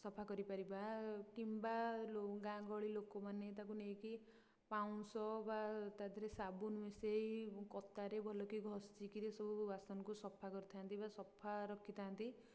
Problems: low volume